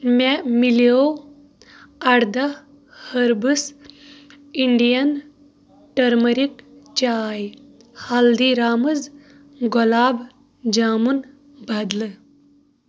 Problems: background conversations at intervals